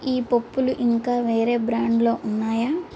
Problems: constant background noise